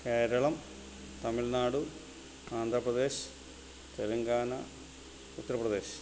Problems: constant background noise